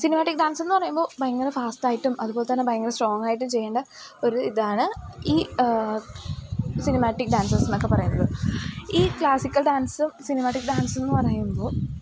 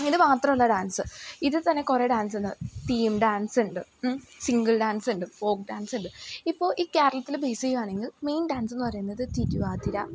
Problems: background sounds at intervals